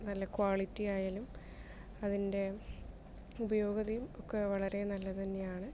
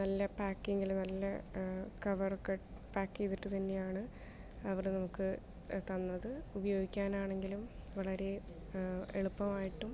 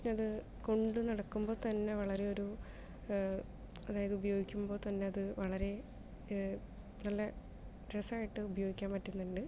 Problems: low volume